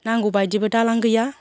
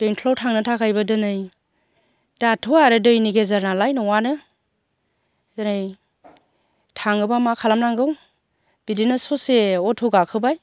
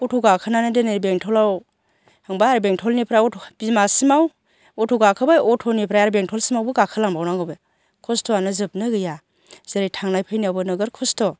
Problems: constant background noise